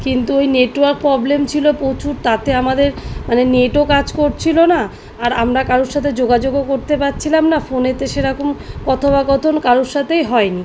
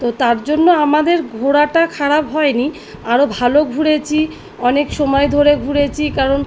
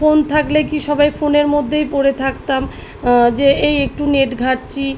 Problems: background sounds at intervals